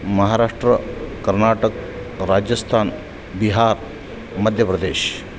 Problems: constant background noise